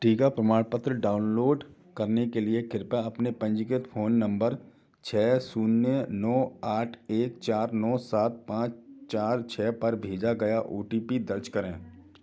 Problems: background sounds at intervals, background conversations at intervals